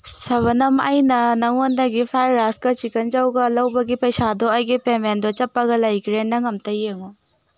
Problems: background sounds at intervals